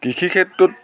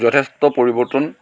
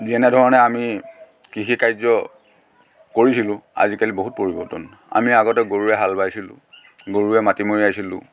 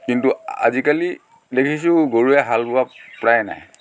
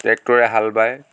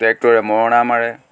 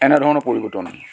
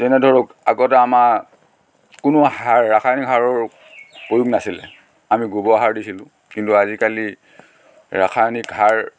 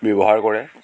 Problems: constant background noise